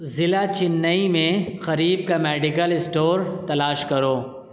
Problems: none marked